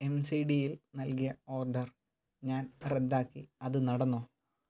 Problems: none marked